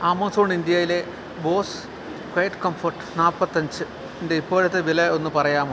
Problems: none marked